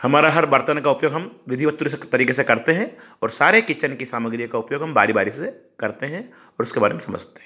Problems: none marked